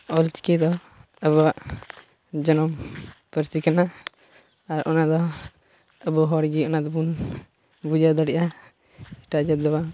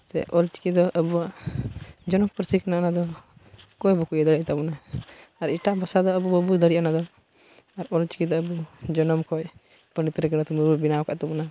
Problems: constant background noise, background conversations at intervals